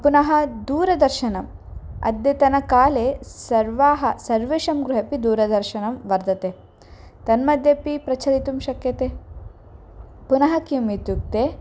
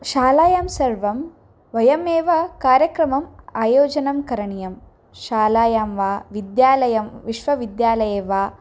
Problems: none marked